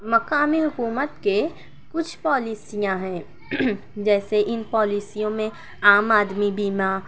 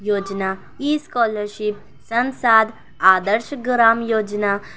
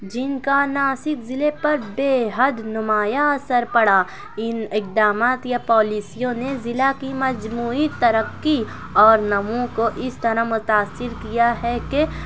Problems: background sounds at intervals